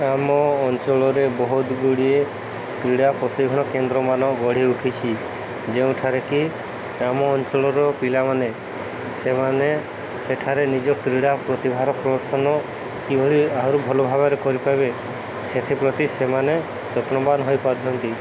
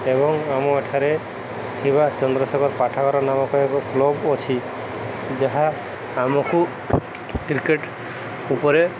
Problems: constant background noise, background conversations at intervals